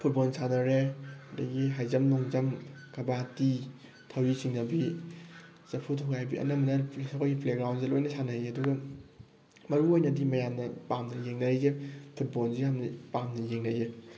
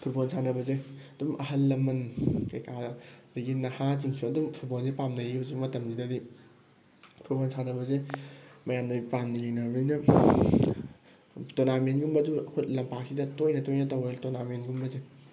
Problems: background sounds at intervals